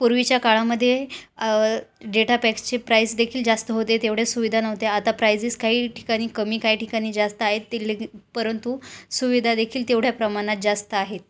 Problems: constant background noise, continuous background conversations